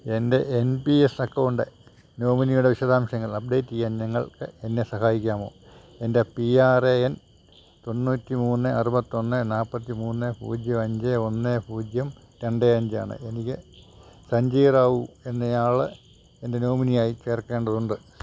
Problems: none marked